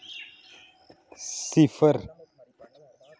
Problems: none marked